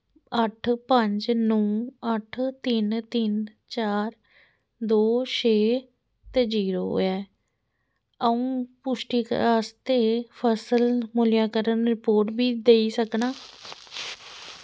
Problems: none marked